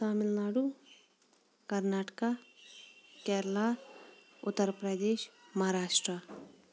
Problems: background sounds at intervals